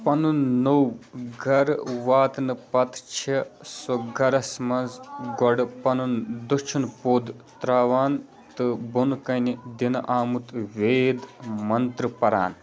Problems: constant background noise, continuous background conversations